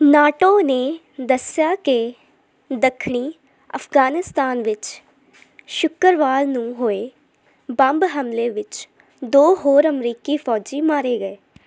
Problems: none marked